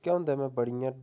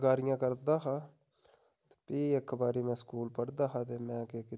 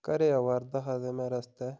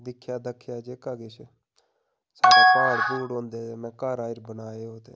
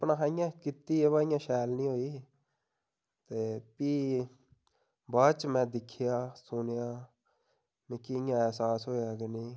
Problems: background sounds at intervals